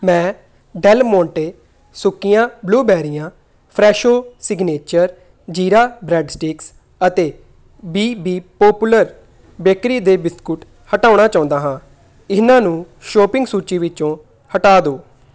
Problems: background conversations at intervals